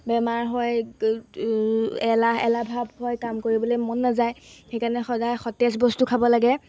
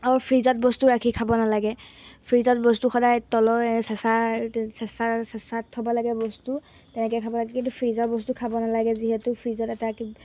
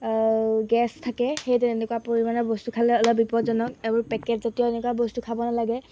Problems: background sounds at intervals